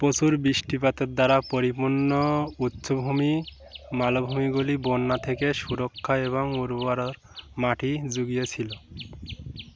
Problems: constant background noise